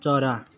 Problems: continuous background conversations